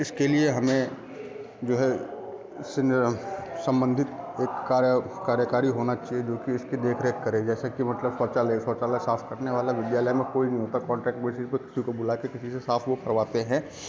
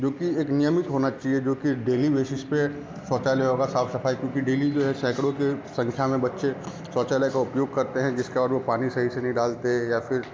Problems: constant background noise, continuous background conversations